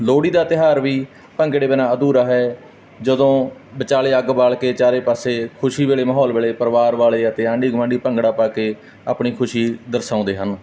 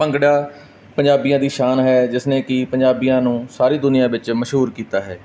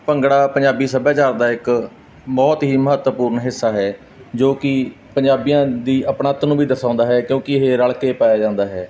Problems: none marked